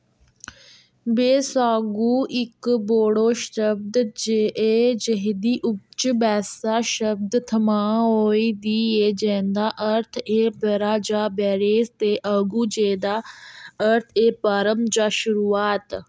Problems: background sounds at intervals